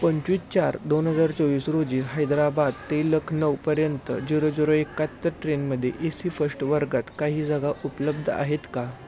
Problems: constant background noise, background conversations at intervals